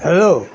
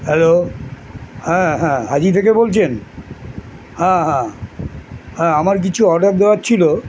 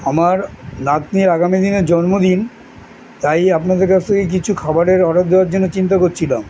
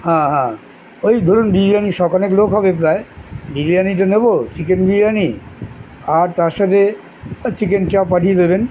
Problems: none marked